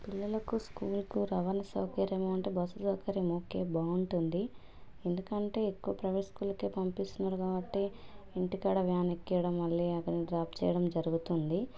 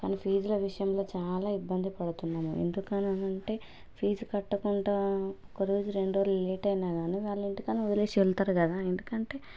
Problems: background conversations at intervals